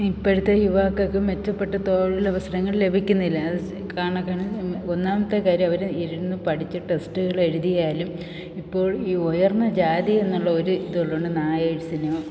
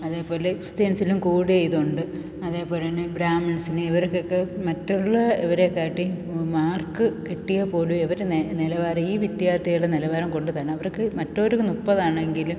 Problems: none marked